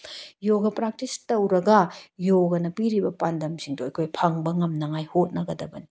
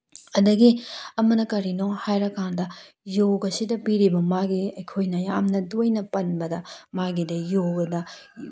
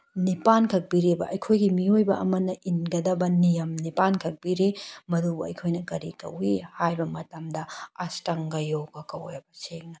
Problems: none marked